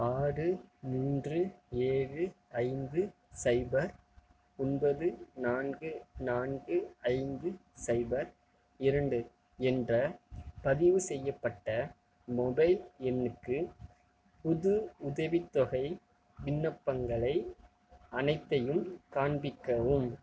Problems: none marked